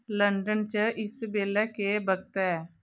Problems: background sounds at intervals